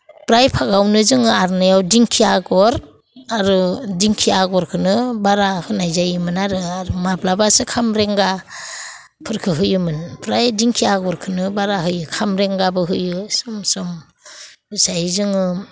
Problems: none marked